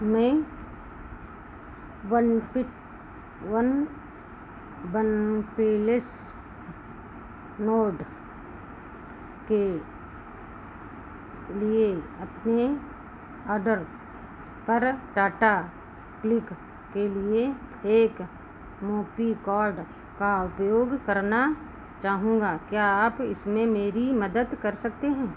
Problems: constant background noise